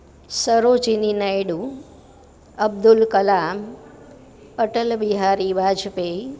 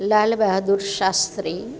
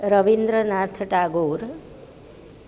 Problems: none marked